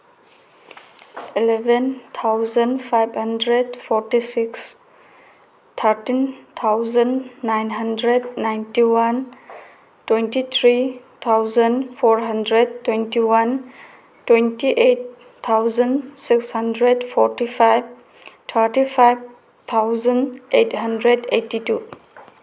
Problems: background sounds at intervals